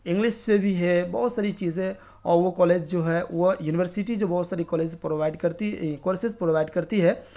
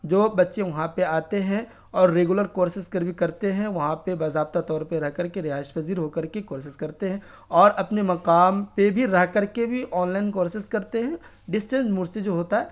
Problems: none marked